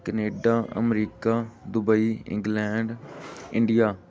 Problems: background sounds at intervals